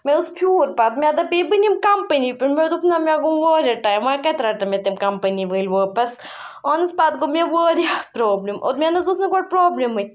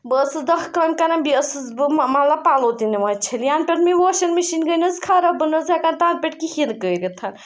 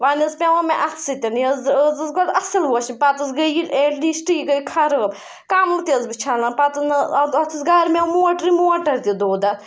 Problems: background sounds at intervals